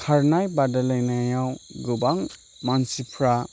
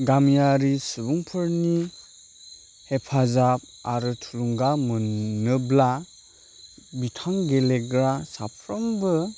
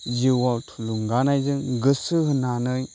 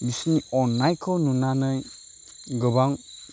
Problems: constant background noise